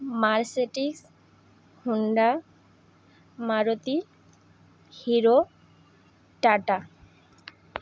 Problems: none marked